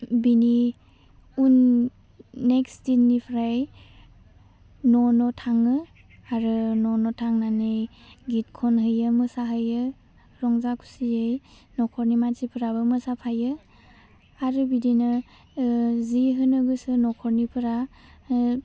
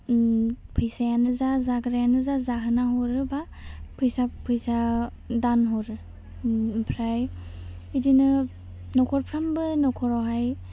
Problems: low volume